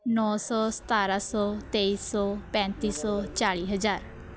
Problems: constant background noise, background conversations at intervals